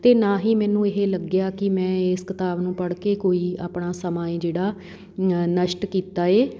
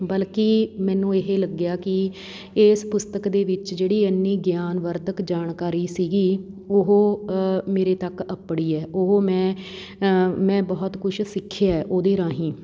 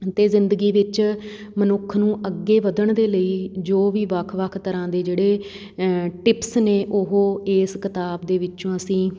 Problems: background sounds at intervals